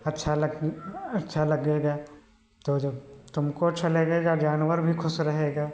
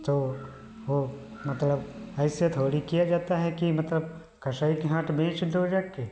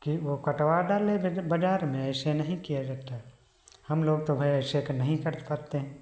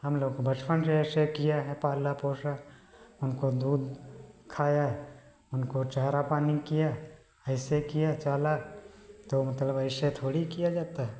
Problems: none marked